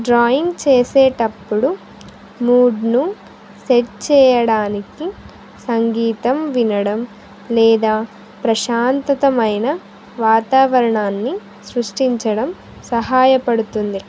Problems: none marked